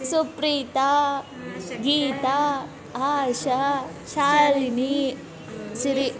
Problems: continuous background conversations